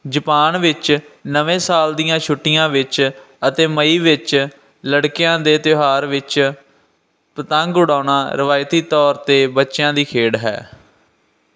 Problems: none marked